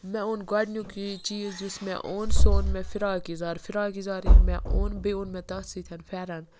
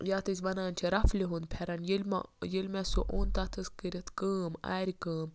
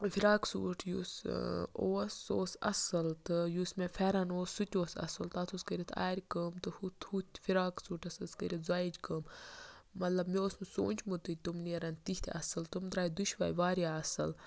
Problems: background sounds at intervals, background conversations at intervals